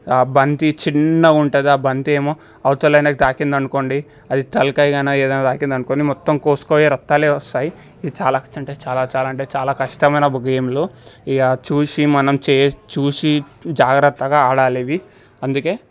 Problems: none marked